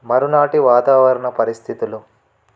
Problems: none marked